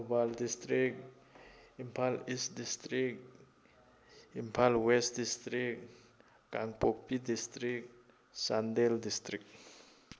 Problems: none marked